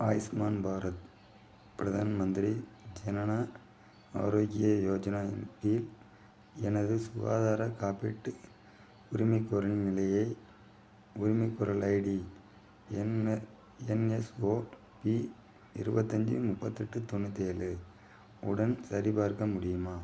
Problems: low volume